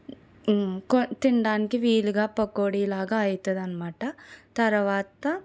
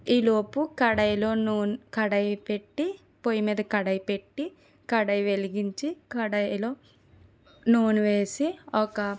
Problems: none marked